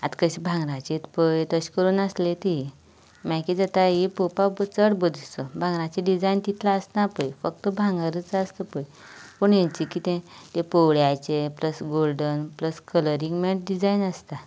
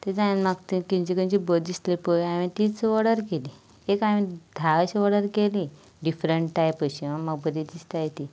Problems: constant background noise